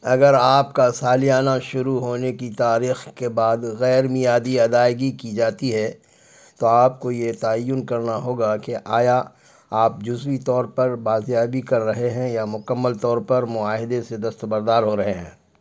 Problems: none marked